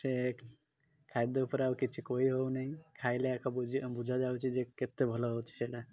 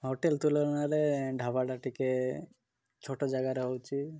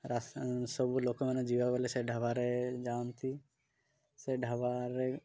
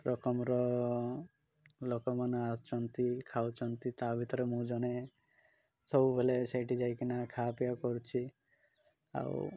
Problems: none marked